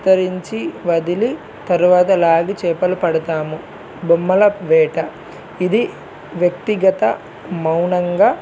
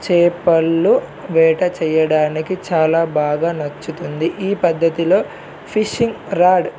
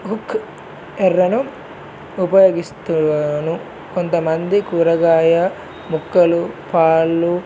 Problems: none marked